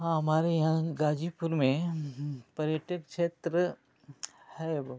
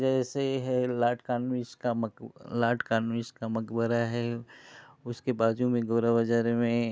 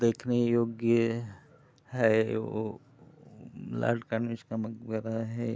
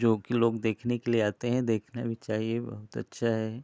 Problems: none marked